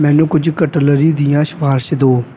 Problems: constant background noise